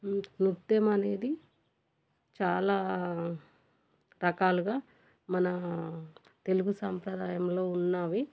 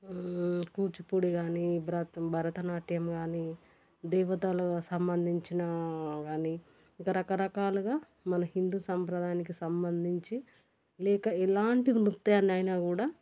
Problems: none marked